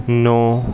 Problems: continuous background conversations